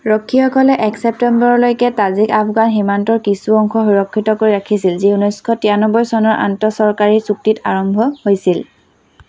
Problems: background sounds at intervals